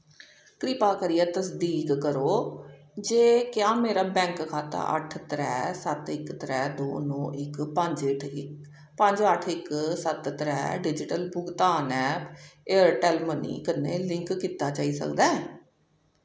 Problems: echo